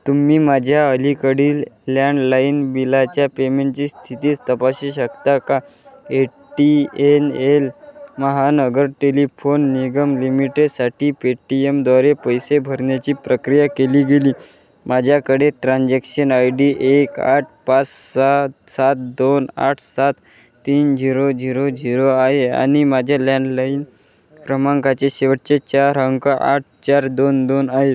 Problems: none marked